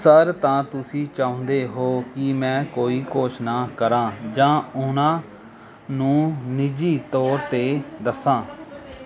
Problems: continuous background conversations